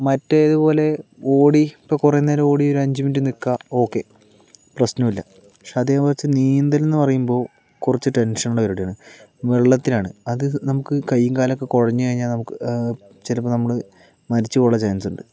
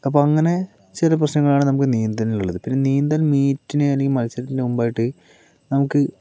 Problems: none marked